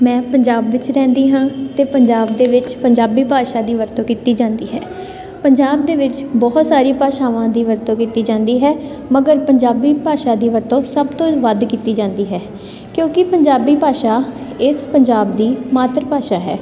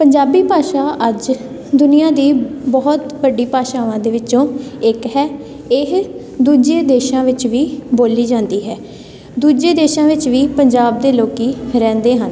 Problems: none marked